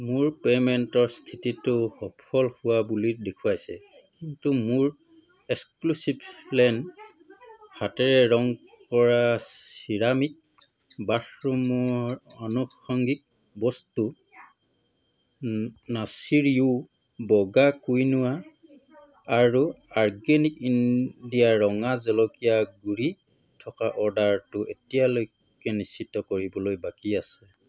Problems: constant background noise